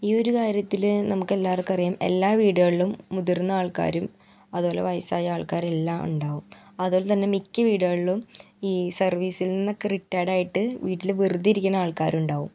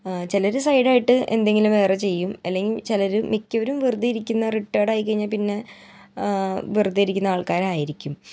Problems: none marked